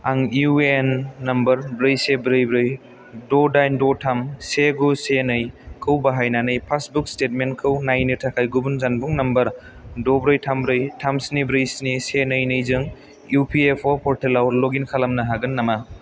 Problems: none marked